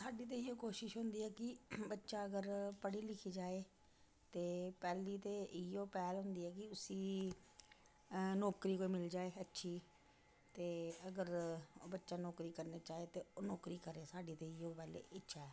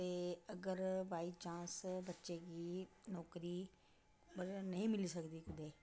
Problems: constant background noise, low volume